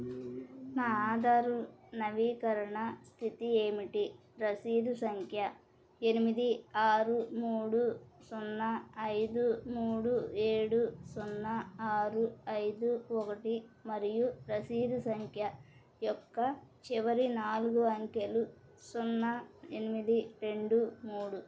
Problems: none marked